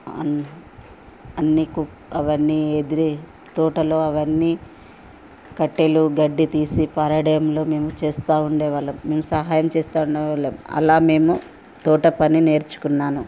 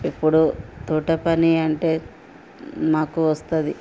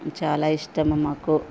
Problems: constant background noise